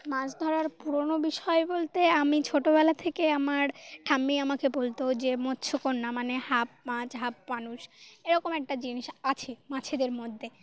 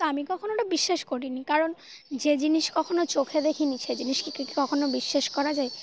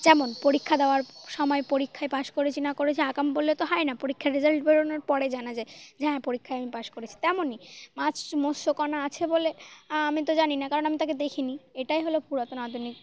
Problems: constant background noise, background conversations at intervals